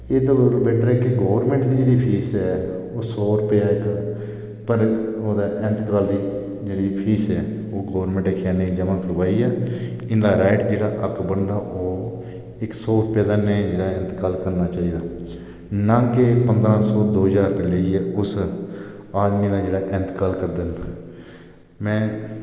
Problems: echo